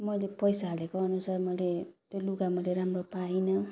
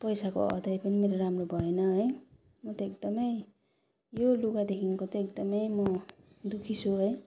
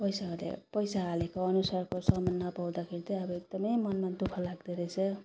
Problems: none marked